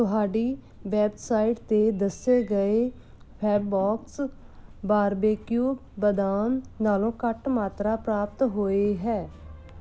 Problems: background sounds at intervals